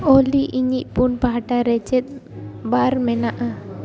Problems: background conversations at intervals